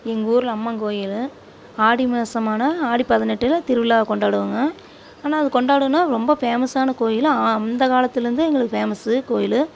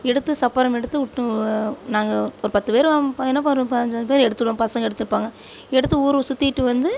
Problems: background sounds at intervals